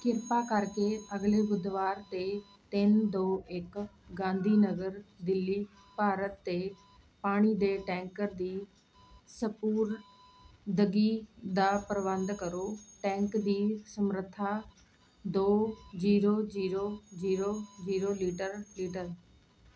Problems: none marked